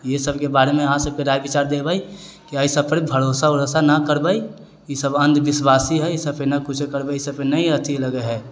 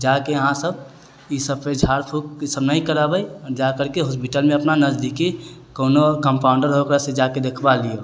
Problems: none marked